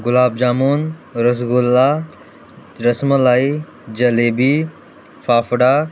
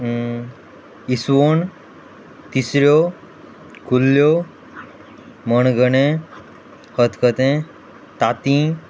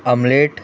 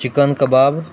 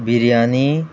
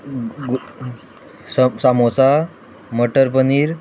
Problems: background conversations at intervals